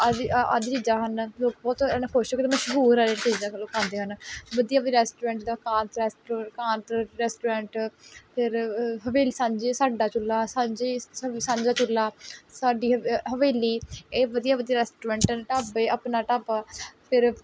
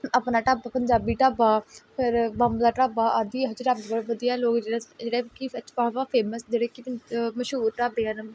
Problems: background sounds at intervals